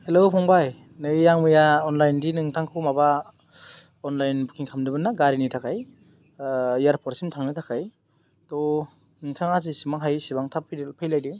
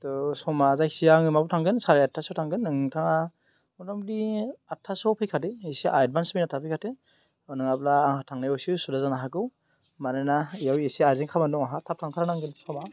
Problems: none marked